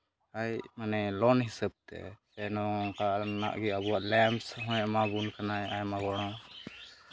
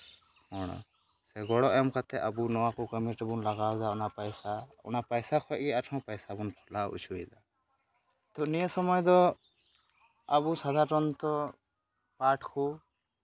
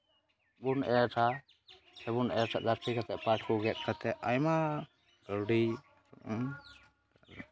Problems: background sounds at intervals, continuous background conversations